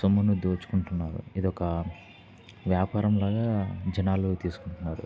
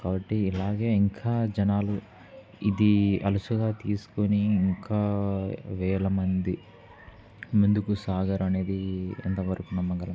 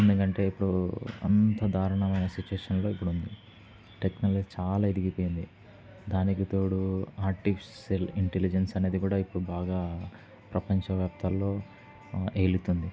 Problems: none marked